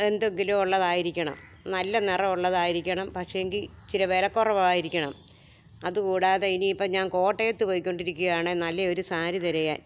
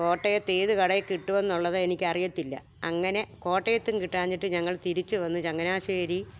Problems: background conversations at intervals